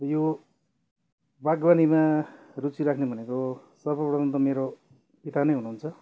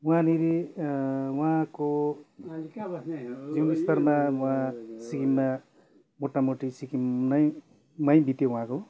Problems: none marked